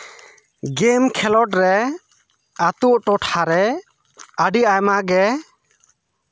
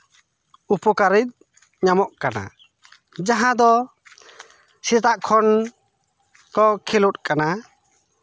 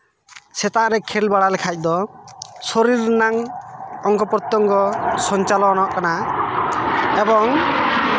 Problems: constant background noise